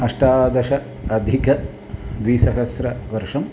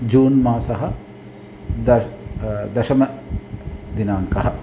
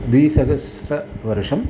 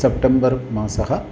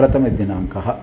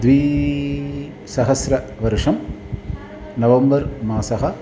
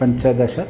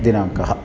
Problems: constant background noise, background conversations at intervals